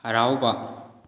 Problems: none marked